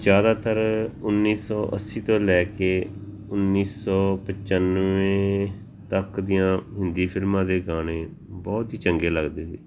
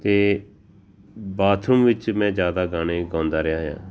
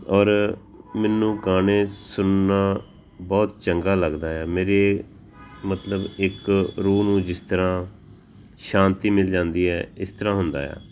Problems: background sounds at intervals